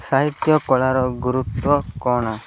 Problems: background sounds at intervals